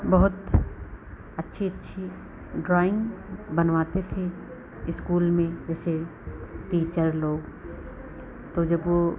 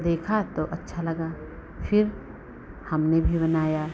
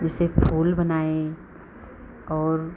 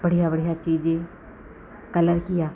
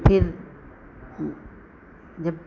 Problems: constant background noise